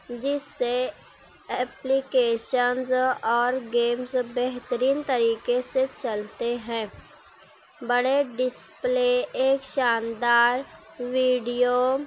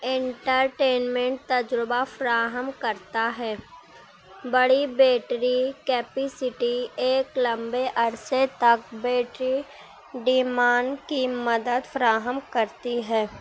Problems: none marked